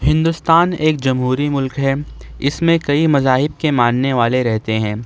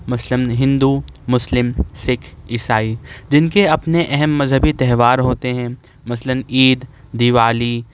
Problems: none marked